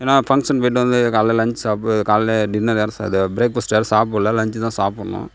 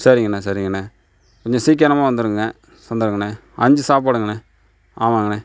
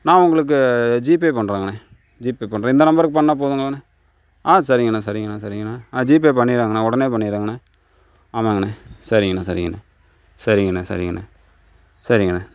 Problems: none marked